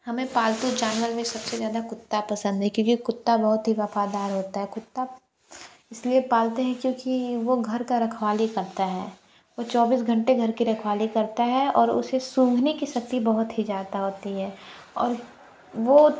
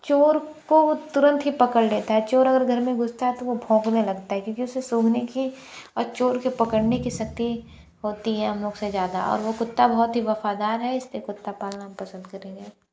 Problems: none marked